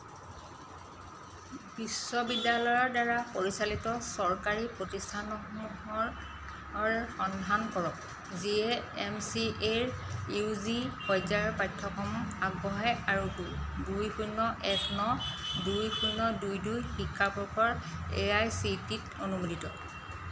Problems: none marked